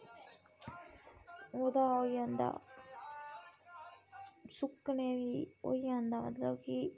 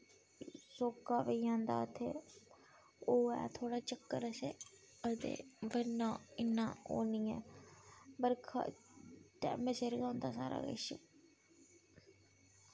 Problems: constant background noise